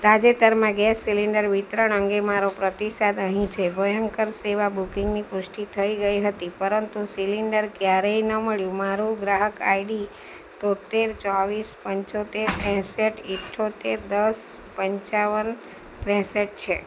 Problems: none marked